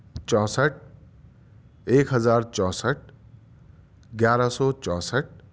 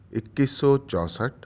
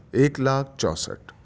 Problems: background sounds at intervals